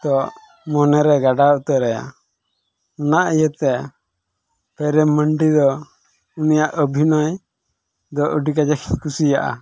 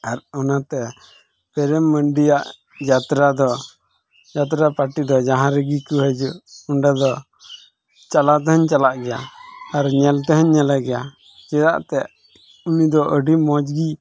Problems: background sounds at intervals